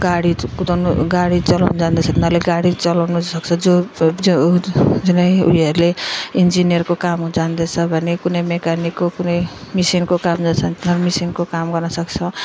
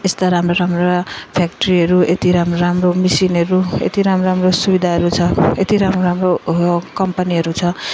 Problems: continuous background conversations